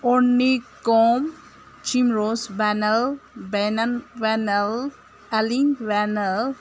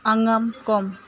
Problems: constant background noise